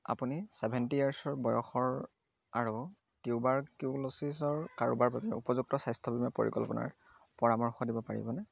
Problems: none marked